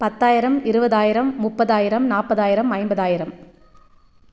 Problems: none marked